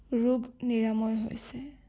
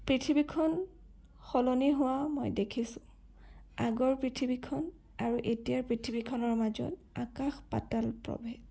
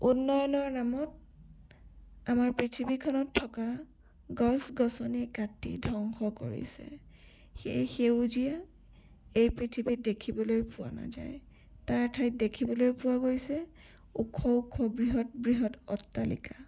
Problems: none marked